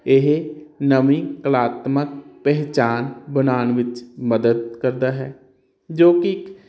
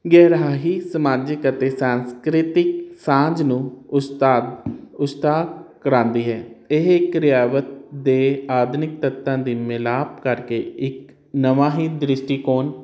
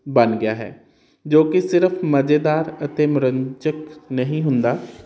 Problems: none marked